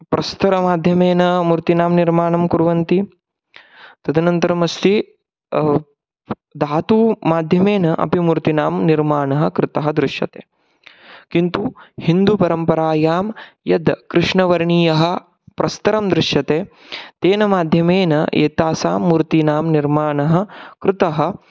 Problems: background sounds at intervals